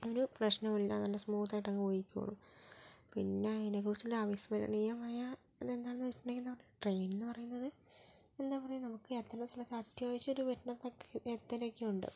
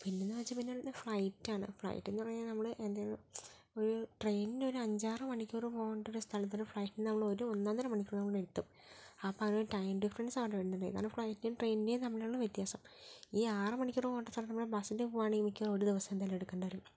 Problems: low volume